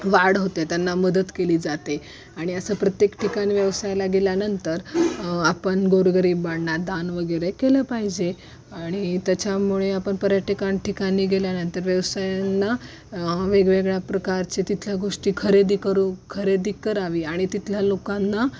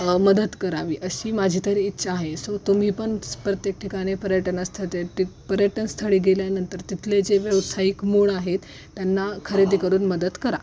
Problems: none marked